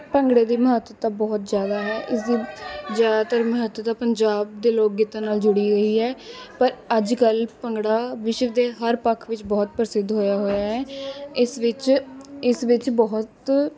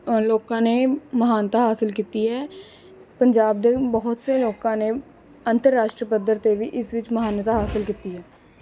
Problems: continuous background conversations